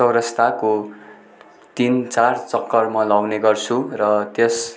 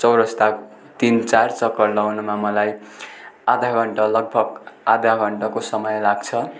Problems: continuous background conversations